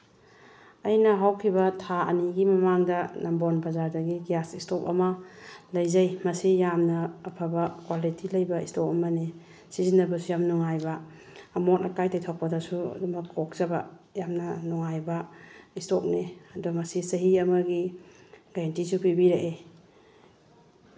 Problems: none marked